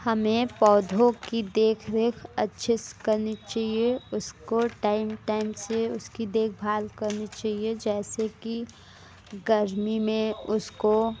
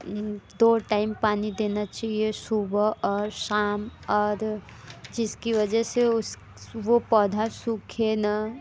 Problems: background sounds at intervals